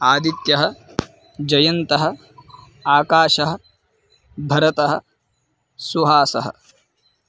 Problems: background sounds at intervals